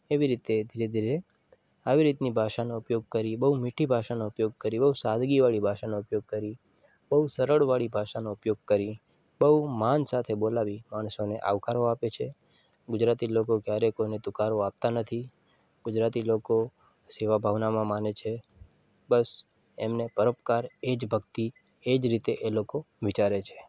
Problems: constant background noise